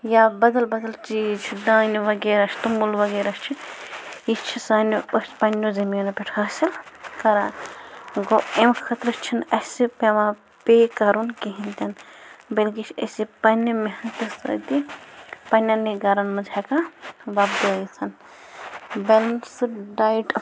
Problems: background sounds at intervals